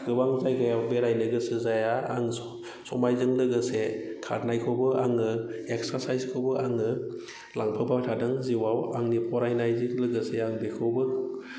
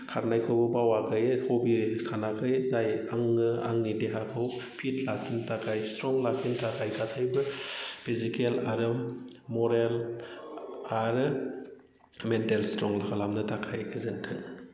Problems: none marked